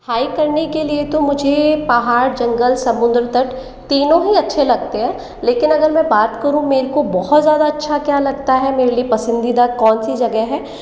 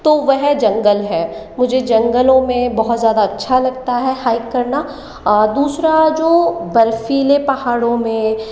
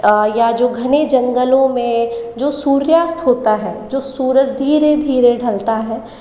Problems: none marked